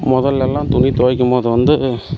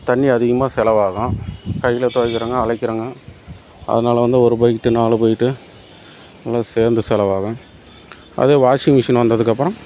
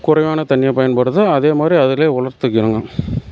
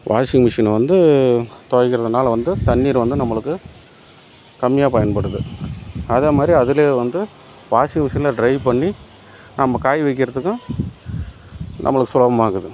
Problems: background sounds at intervals